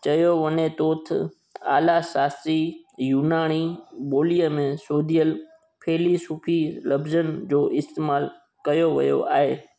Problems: constant background noise